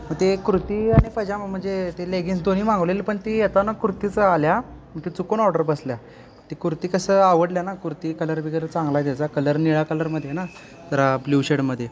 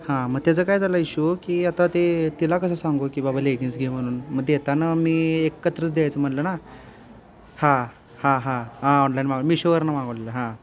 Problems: constant background noise, continuous background conversations